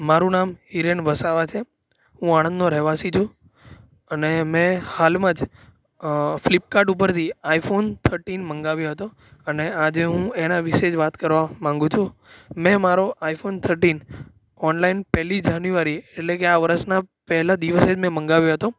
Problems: background sounds at intervals